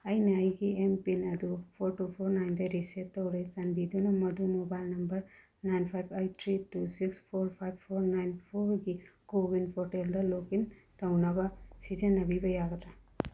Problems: low volume